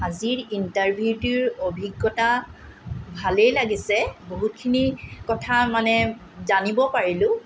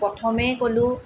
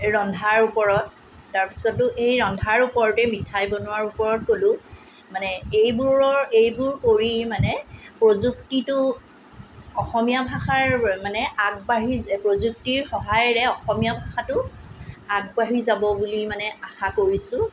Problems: none marked